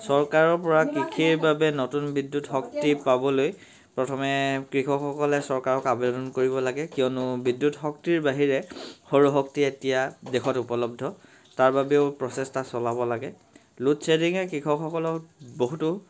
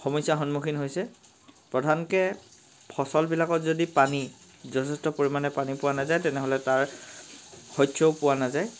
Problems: constant background noise